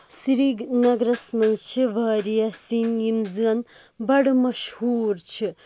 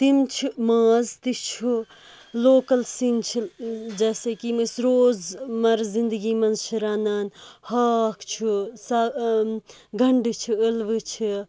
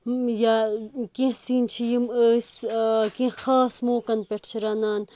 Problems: background sounds at intervals